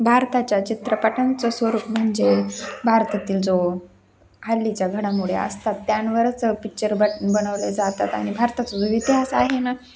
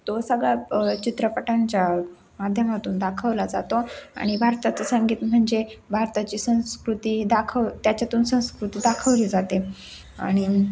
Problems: none marked